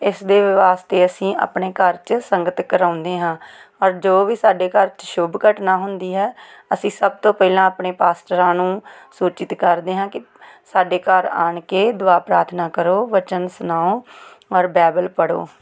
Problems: background sounds at intervals